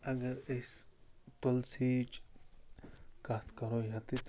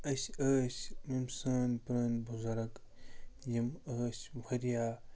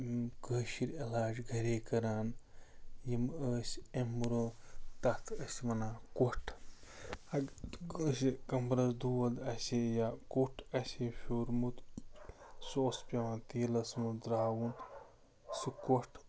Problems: constant background noise